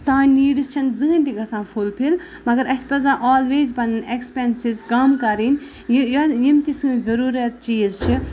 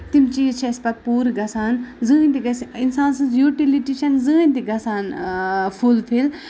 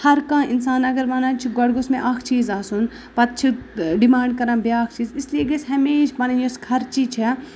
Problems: none marked